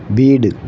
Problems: constant background noise